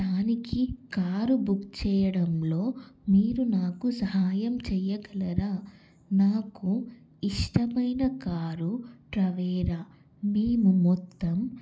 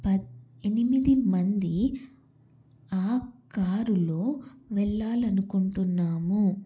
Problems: constant background noise